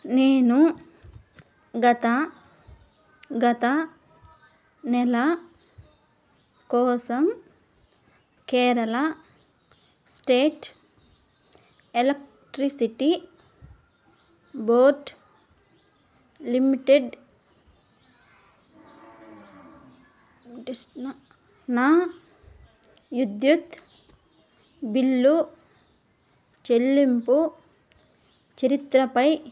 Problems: background sounds at intervals